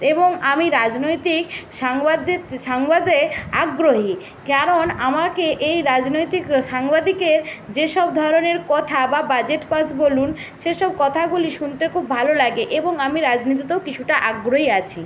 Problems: constant background noise